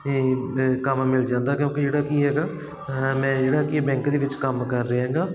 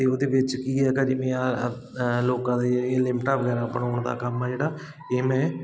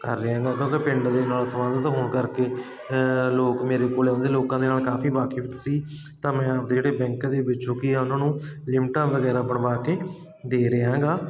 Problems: constant background noise